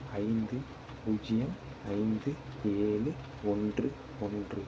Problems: constant background noise, low volume